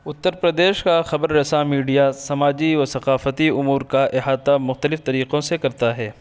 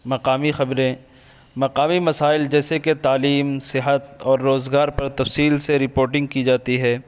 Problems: constant background noise